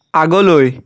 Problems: constant background noise